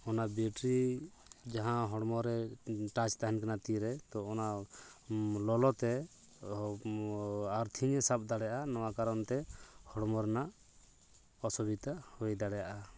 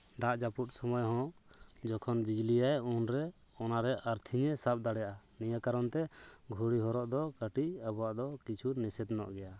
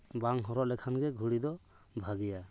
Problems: background conversations at intervals